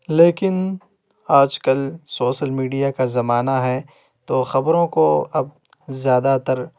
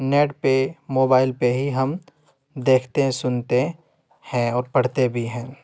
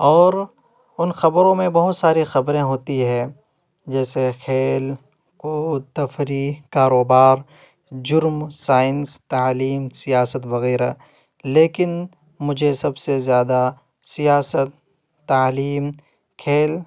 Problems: background sounds at intervals